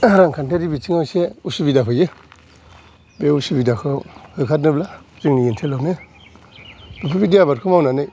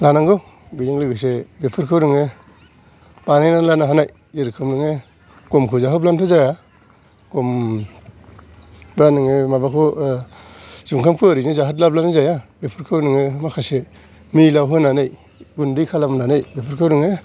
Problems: background sounds at intervals